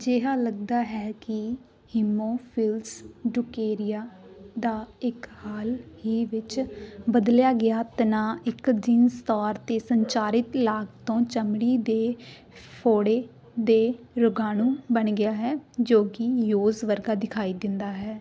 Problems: background sounds at intervals